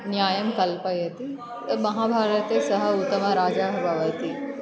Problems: background sounds at intervals